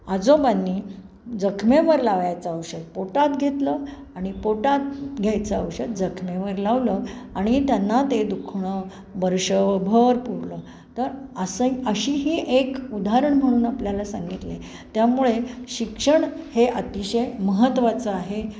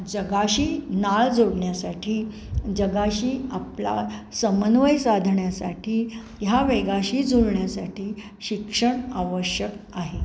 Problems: none marked